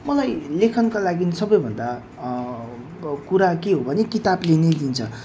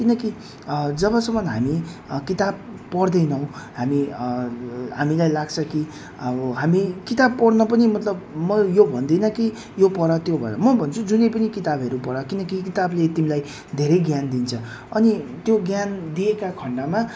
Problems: none marked